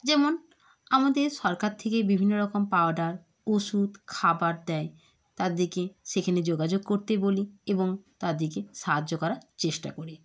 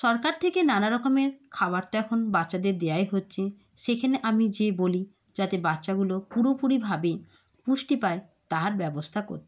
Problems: background sounds at intervals